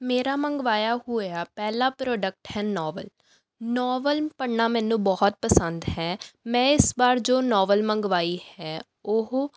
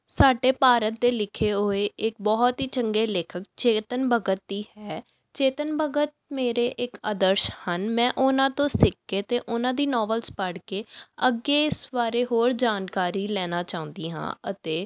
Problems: background sounds at intervals